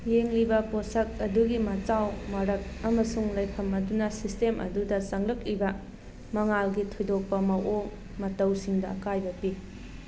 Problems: constant background noise